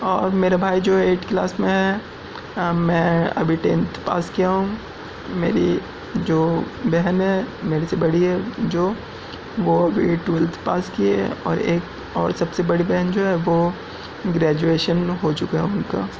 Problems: background sounds at intervals